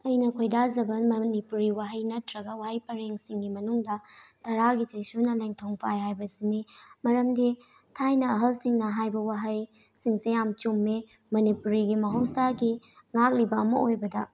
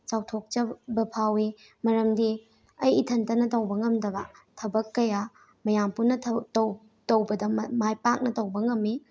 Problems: none marked